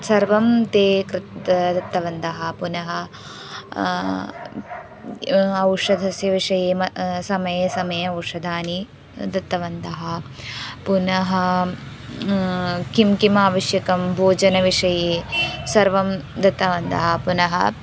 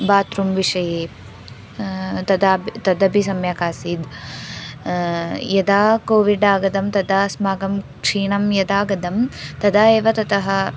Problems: background sounds at intervals